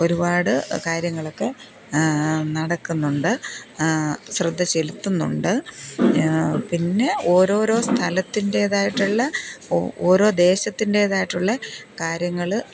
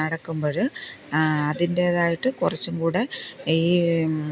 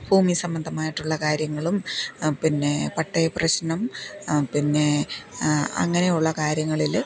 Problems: none marked